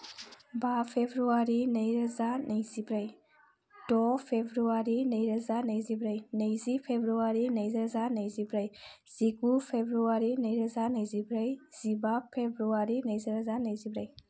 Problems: none marked